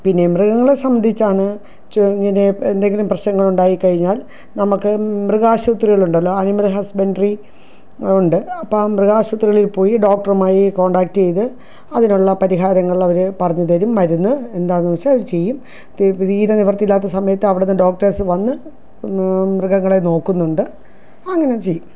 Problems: none marked